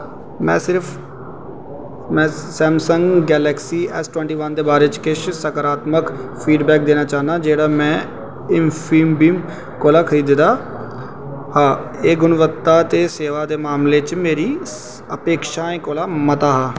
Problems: constant background noise, echo